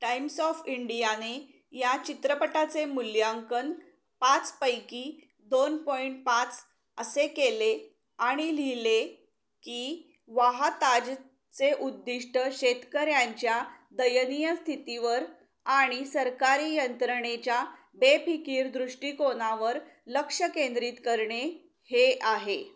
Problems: background sounds at intervals